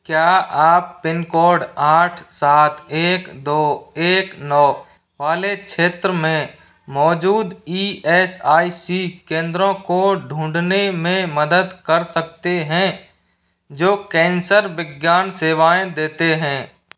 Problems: background sounds at intervals